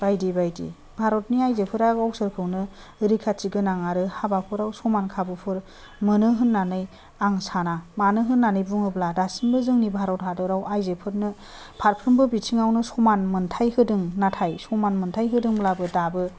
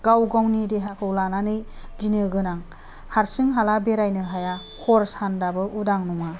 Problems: none marked